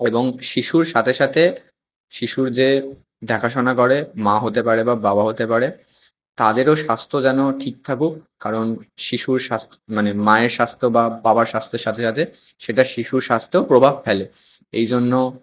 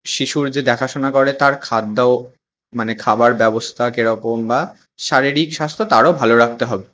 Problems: none marked